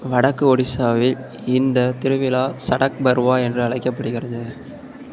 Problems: background sounds at intervals